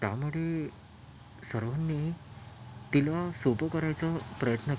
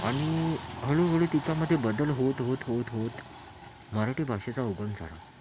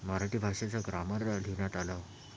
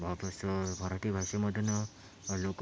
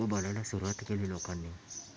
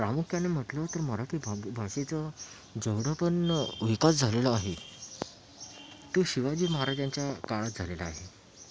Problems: constant background noise, background conversations at intervals, low volume